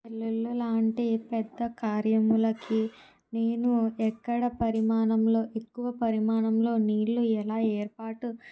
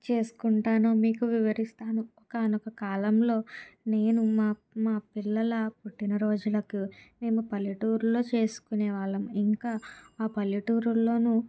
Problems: none marked